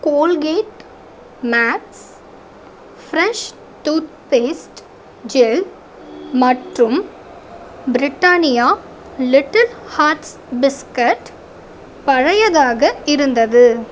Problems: constant background noise